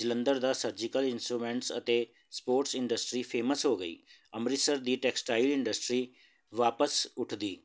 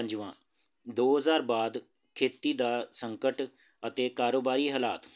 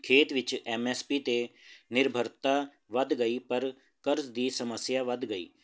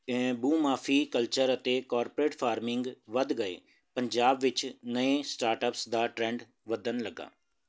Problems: none marked